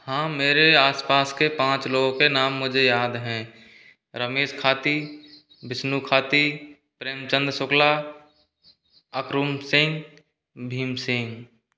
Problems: background sounds at intervals